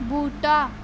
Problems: constant background noise